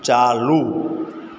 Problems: constant background noise, echo